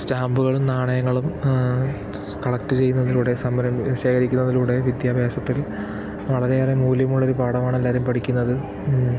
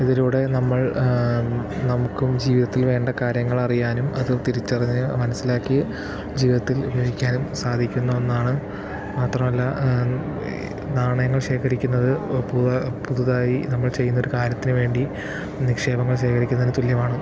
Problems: constant background noise